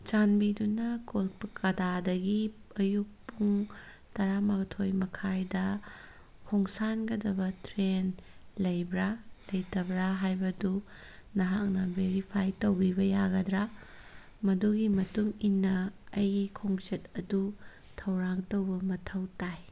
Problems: none marked